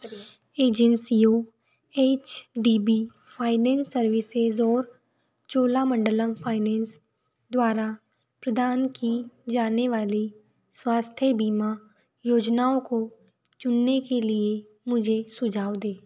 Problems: constant background noise, background conversations at intervals